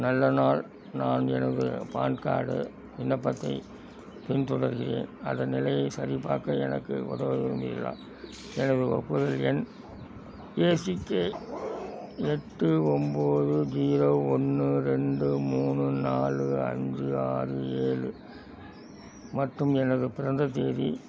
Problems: background sounds at intervals